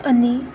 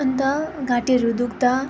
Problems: constant background noise